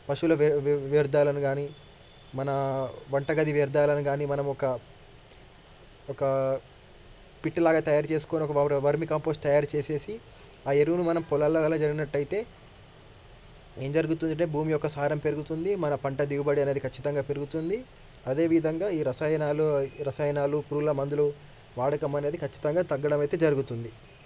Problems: background sounds at intervals